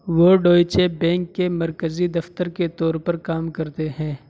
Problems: constant background noise